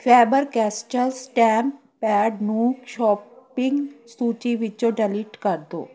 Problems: continuous background conversations